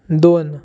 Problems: constant background noise